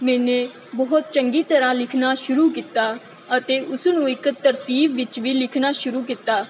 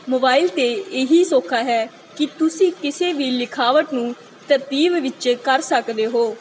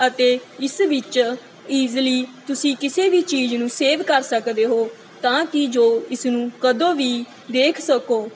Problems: none marked